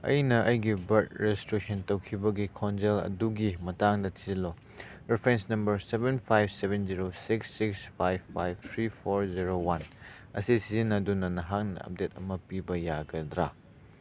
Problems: none marked